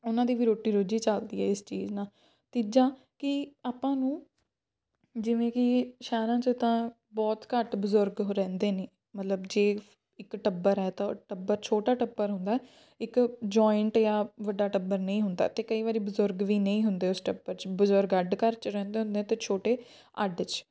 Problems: background sounds at intervals